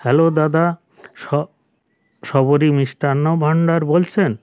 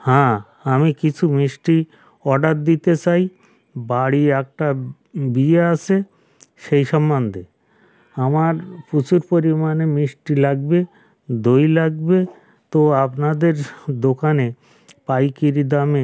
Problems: background sounds at intervals